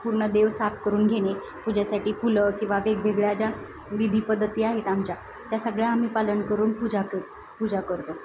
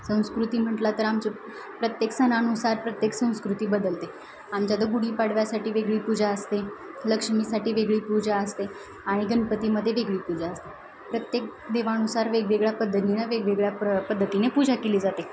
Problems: none marked